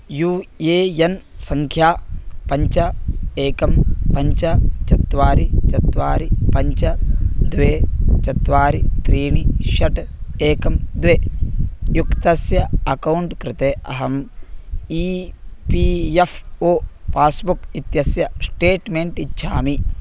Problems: constant background noise